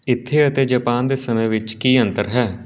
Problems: background sounds at intervals